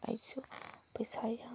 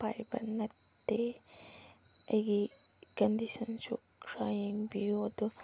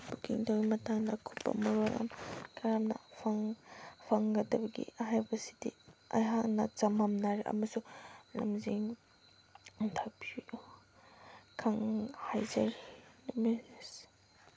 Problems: constant background noise